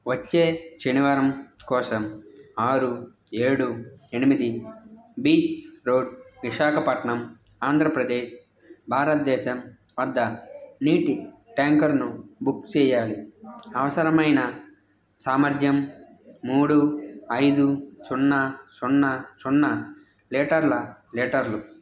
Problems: constant background noise, background conversations at intervals